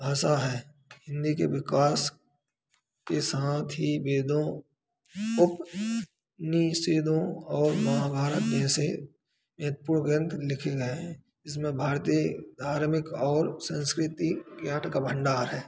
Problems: background sounds at intervals